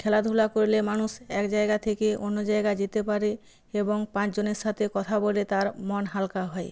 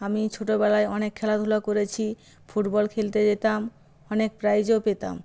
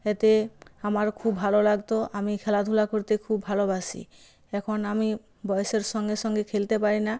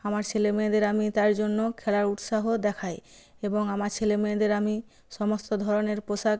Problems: background sounds at intervals